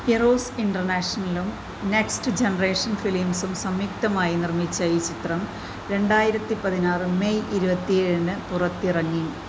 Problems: constant background noise